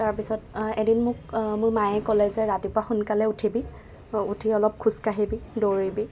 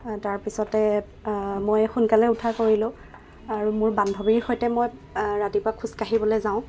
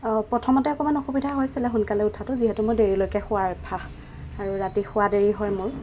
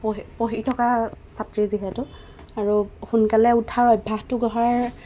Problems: none marked